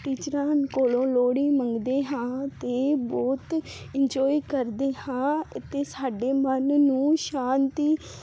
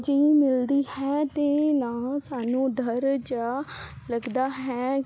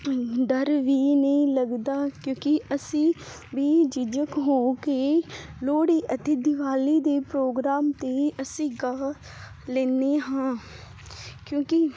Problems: constant background noise